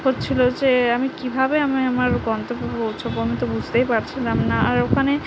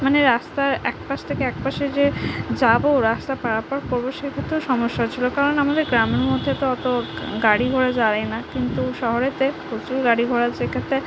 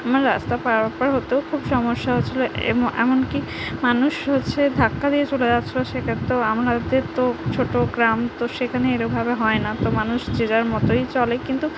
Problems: constant background noise, background conversations at intervals